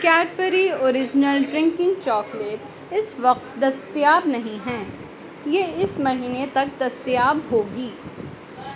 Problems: background sounds at intervals